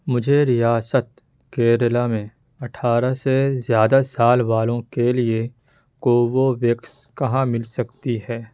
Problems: background sounds at intervals